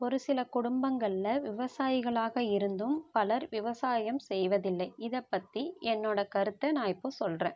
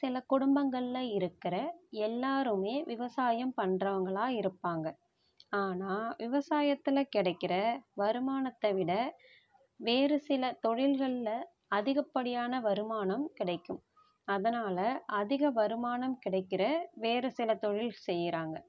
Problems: none marked